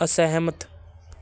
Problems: none marked